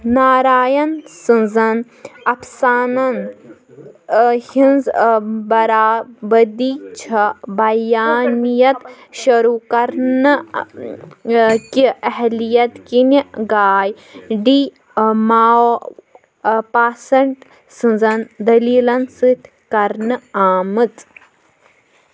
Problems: background sounds at intervals, background conversations at intervals